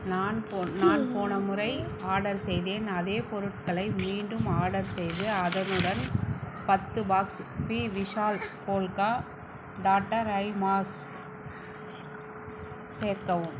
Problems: background sounds at intervals, low volume